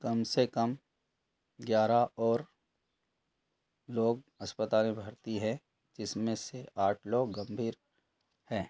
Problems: none marked